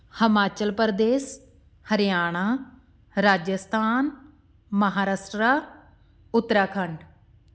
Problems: constant background noise